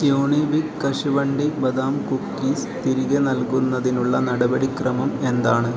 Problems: continuous background conversations